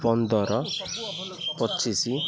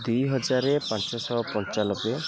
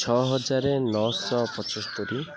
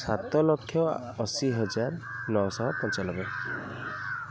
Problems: constant background noise, continuous background conversations